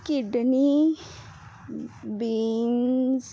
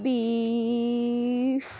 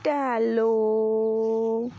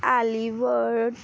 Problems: none marked